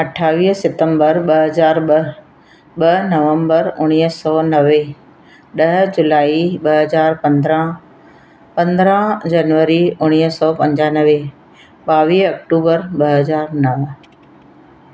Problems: constant background noise